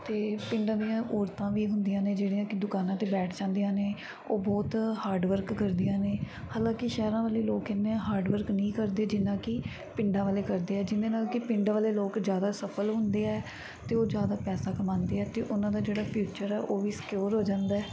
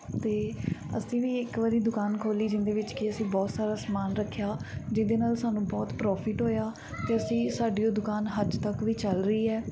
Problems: none marked